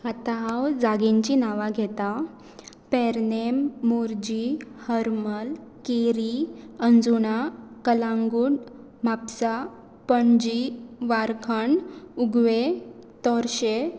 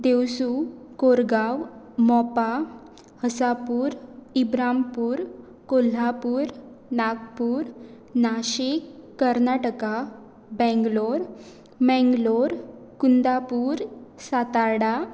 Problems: none marked